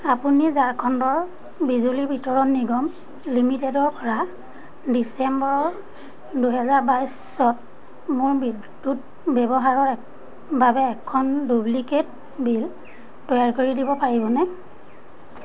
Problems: constant background noise